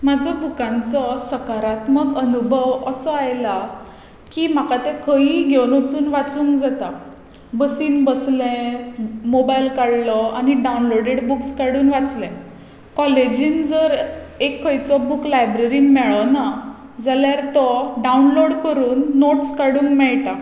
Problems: none marked